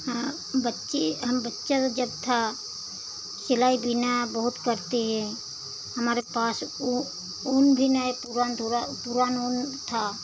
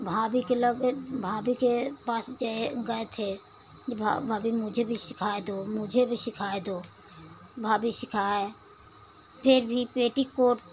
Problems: constant background noise